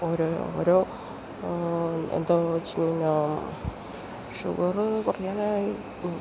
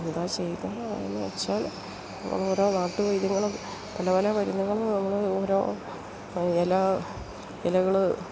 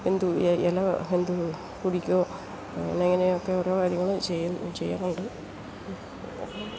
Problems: constant background noise